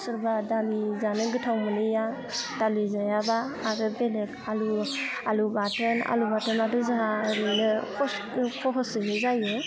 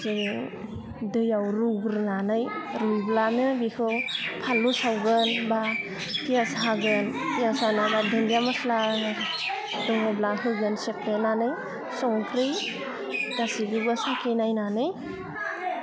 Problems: constant background noise